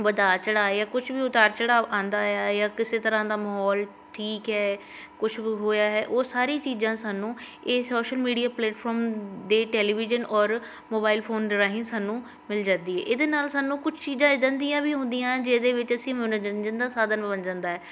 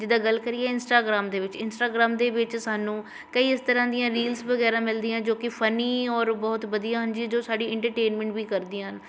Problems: constant background noise